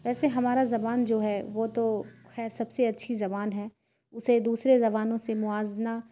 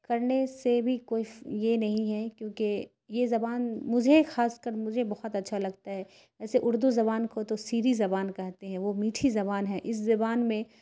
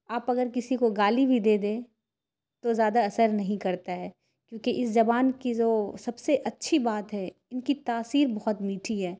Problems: none marked